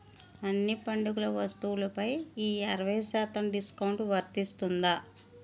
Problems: constant background noise